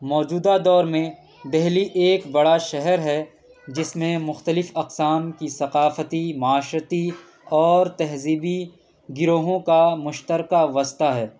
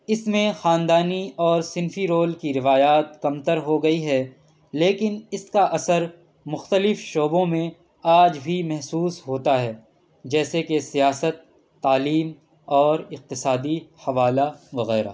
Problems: background sounds at intervals